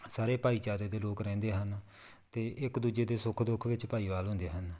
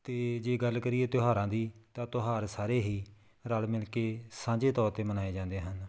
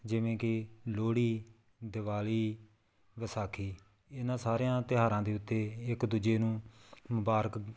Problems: background sounds at intervals